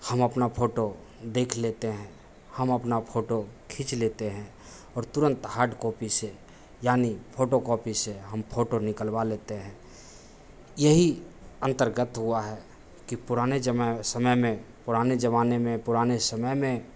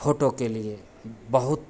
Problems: none marked